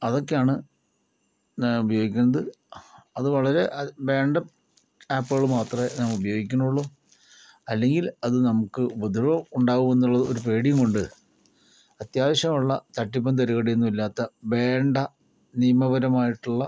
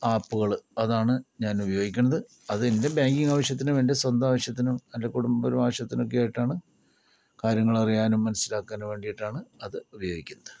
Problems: low volume